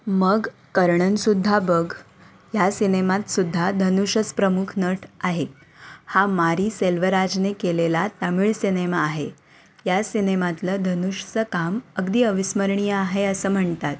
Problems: none marked